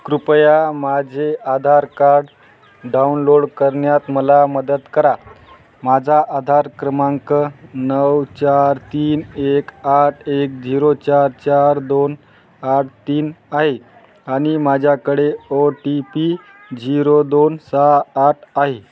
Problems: constant background noise, background conversations at intervals